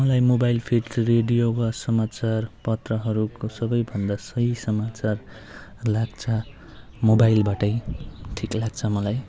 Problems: background sounds at intervals